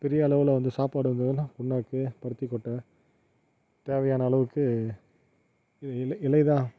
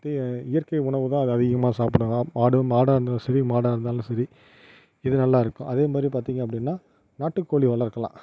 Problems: none marked